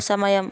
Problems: background conversations at intervals